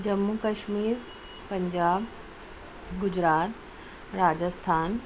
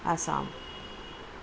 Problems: none marked